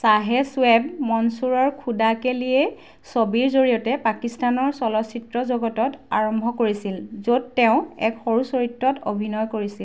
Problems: none marked